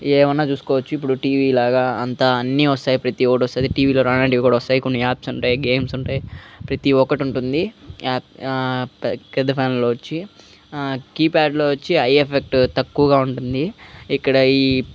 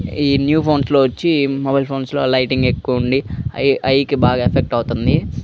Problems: none marked